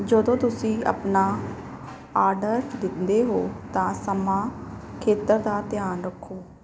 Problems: background sounds at intervals